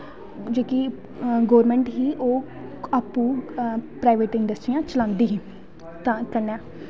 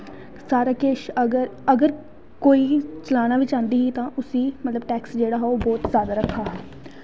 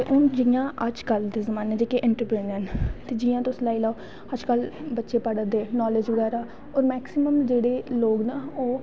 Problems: constant background noise